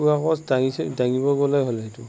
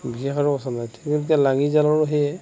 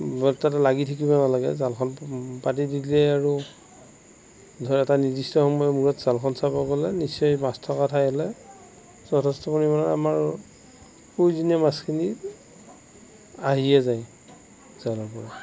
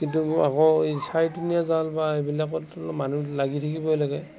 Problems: background sounds at intervals, background conversations at intervals, low volume